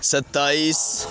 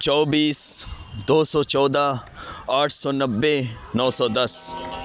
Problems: background conversations at intervals